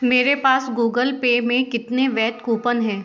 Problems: background sounds at intervals